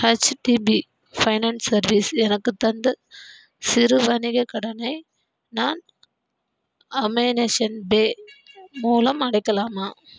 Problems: background sounds at intervals